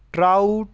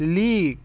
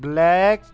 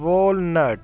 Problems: constant background noise